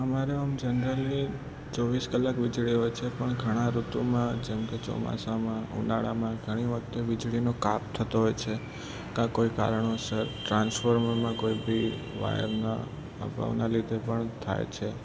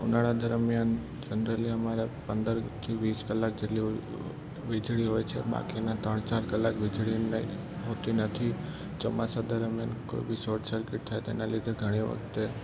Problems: constant background noise, low volume